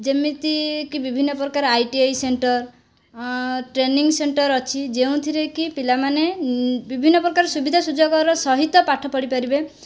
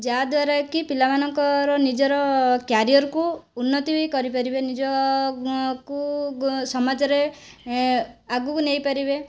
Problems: none marked